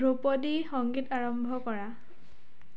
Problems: none marked